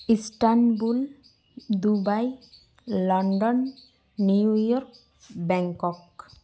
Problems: constant background noise, echo